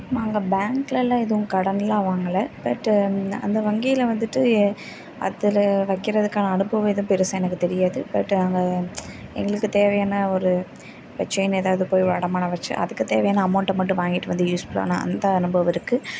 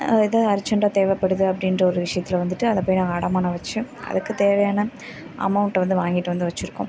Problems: constant background noise, background conversations at intervals